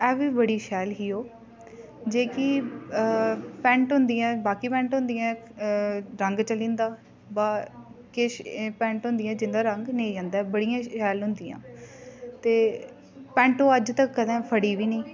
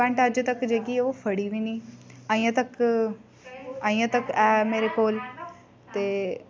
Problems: constant background noise, background conversations at intervals